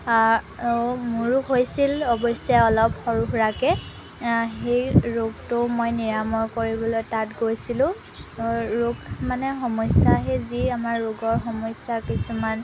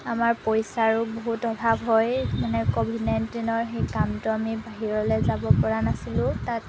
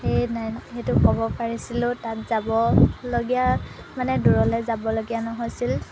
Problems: constant background noise